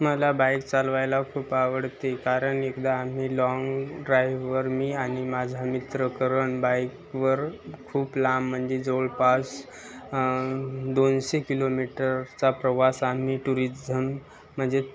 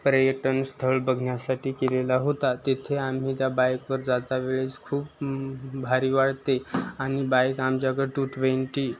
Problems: constant background noise, continuous background conversations